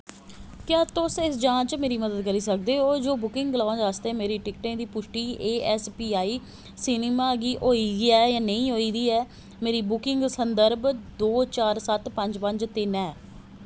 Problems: background sounds at intervals